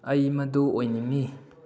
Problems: low volume